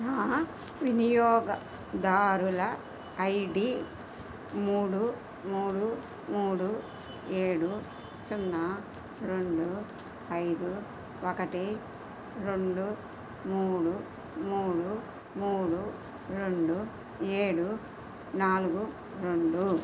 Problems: none marked